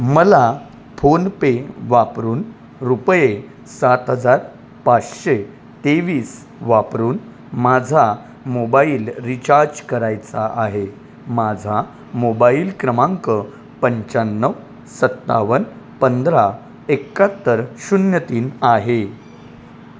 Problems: constant background noise